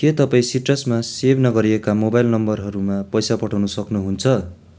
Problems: none marked